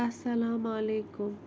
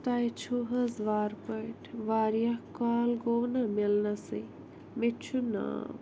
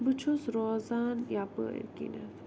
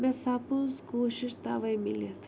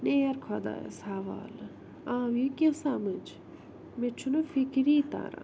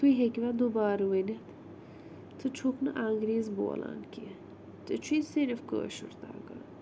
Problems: none marked